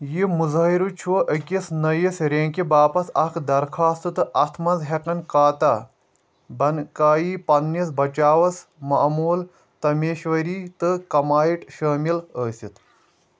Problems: none marked